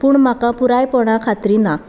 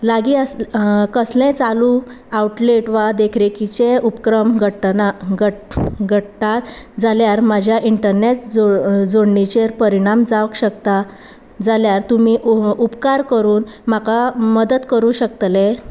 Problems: constant background noise